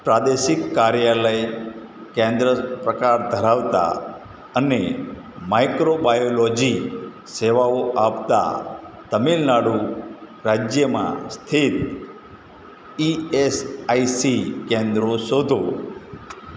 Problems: background sounds at intervals, background conversations at intervals